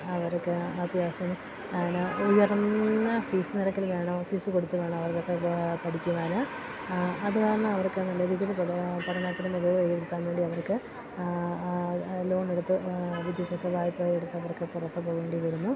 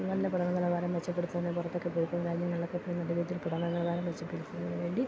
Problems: constant background noise